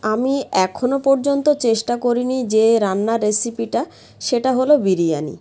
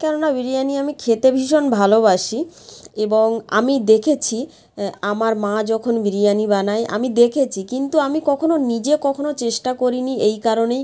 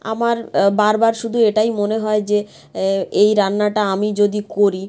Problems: none marked